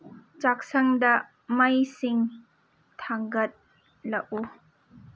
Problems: none marked